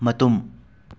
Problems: background sounds at intervals